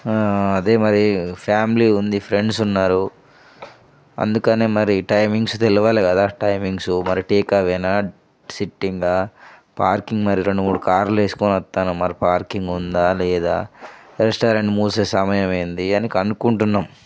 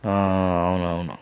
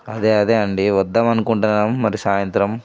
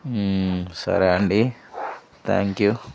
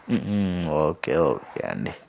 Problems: background sounds at intervals